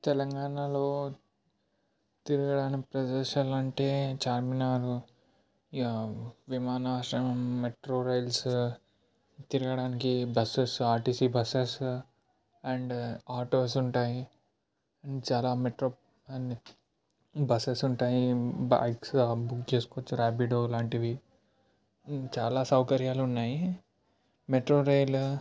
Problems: low volume